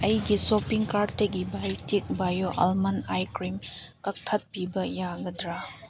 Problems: background sounds at intervals